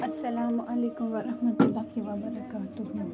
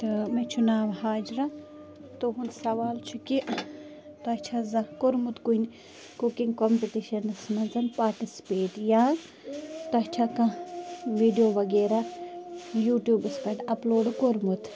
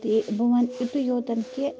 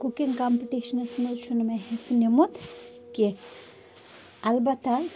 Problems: constant background noise